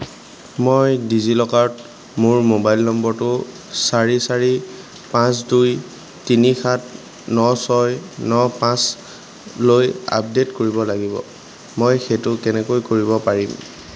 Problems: none marked